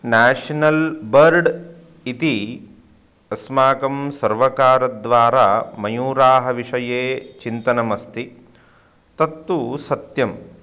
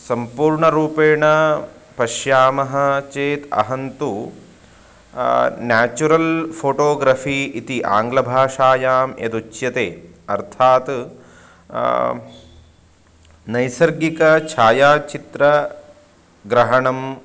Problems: constant background noise